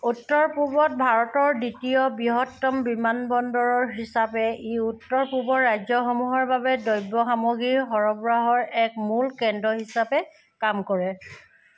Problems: background sounds at intervals